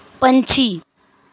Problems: none marked